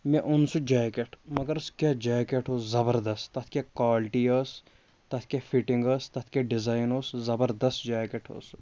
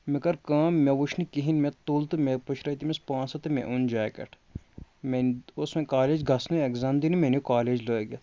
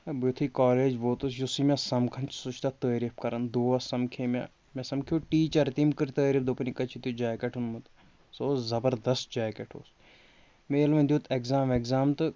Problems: constant background noise